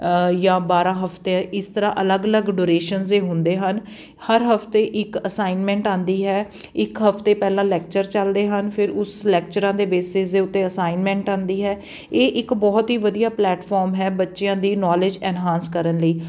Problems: background sounds at intervals